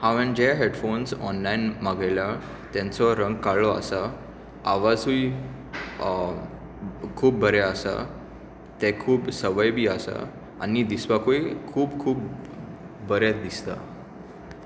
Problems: none marked